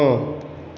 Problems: constant background noise, echo